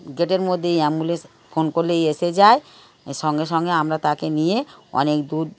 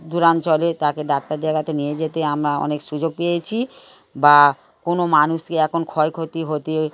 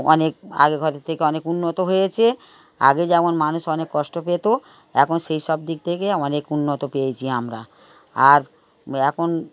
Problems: background sounds at intervals